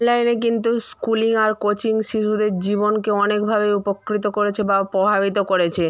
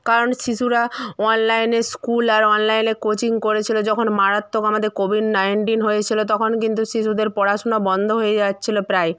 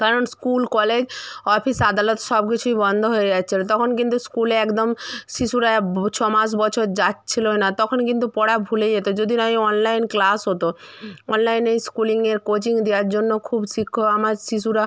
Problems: none marked